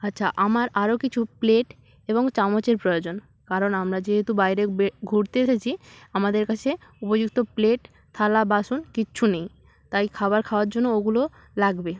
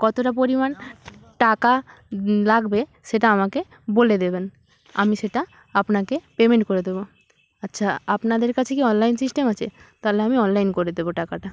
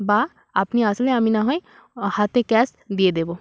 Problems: background sounds at intervals